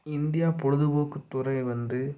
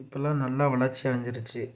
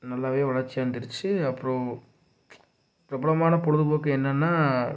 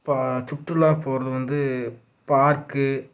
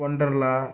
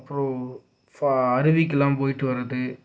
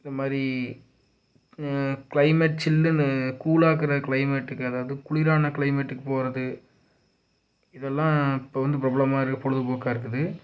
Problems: low volume